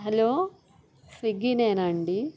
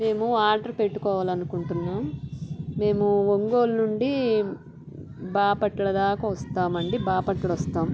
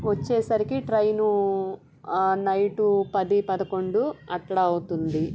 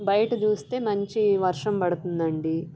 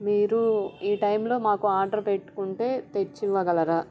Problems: background sounds at intervals